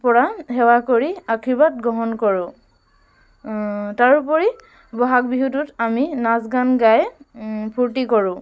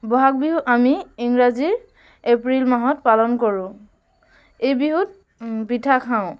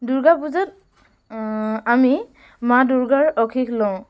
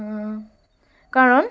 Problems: none marked